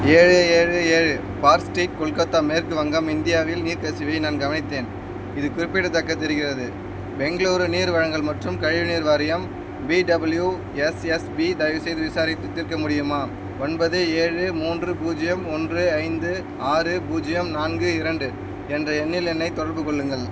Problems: constant background noise